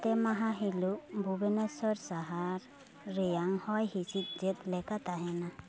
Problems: continuous background conversations